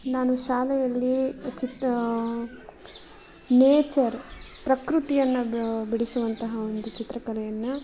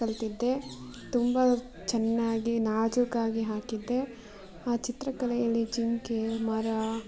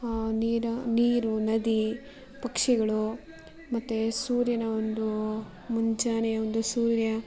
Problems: background sounds at intervals